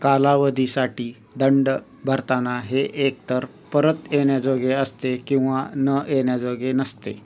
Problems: constant background noise, continuous background conversations